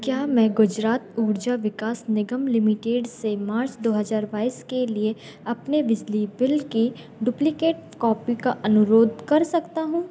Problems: background sounds at intervals